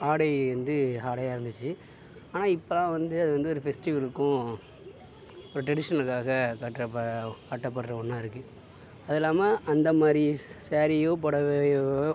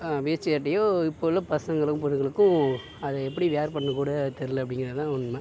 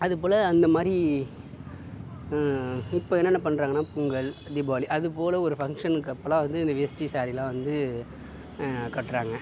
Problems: constant background noise